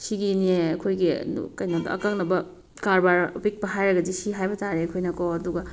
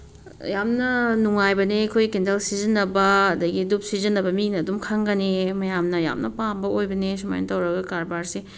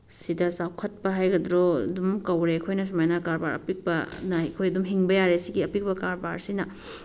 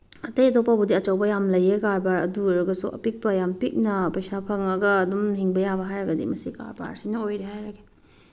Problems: background sounds at intervals